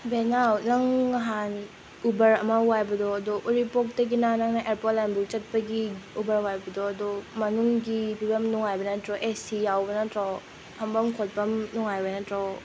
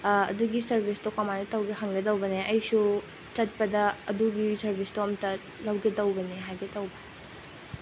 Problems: constant background noise